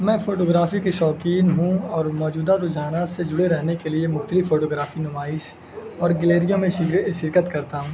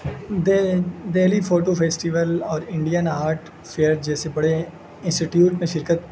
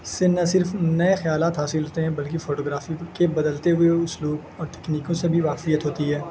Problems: constant background noise